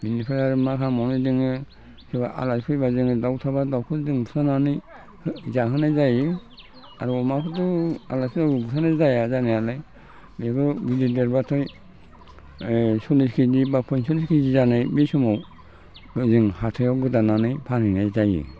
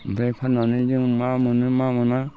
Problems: constant background noise